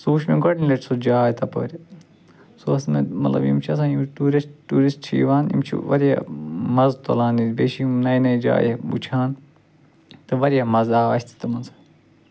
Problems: constant background noise